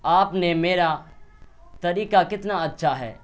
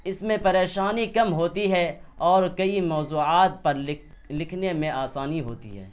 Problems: none marked